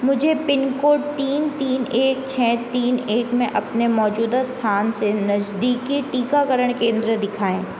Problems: constant background noise